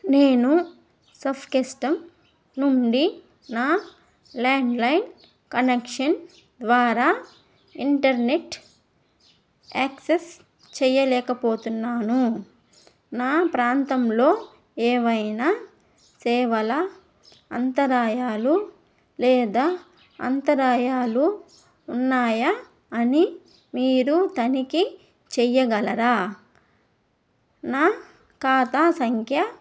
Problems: background sounds at intervals